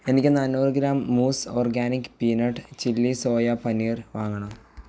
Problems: none marked